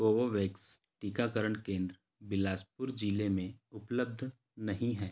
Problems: none marked